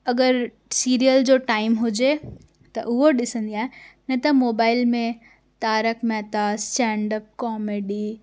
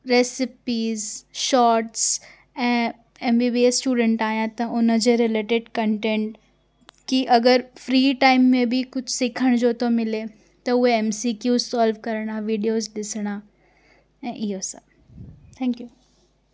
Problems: none marked